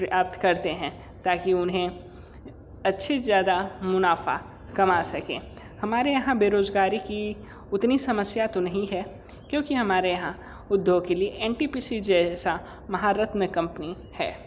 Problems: constant background noise, echo